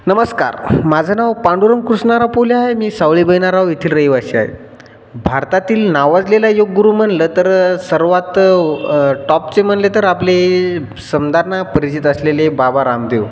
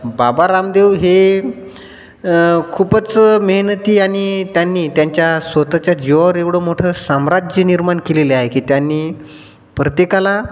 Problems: constant background noise